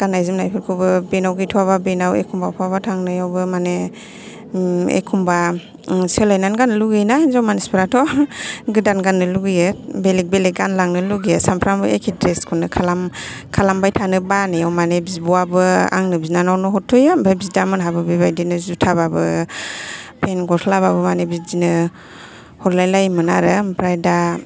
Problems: background conversations at intervals